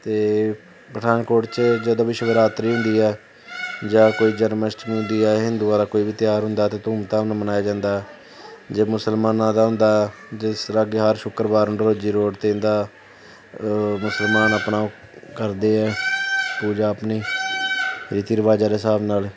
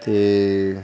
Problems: constant background noise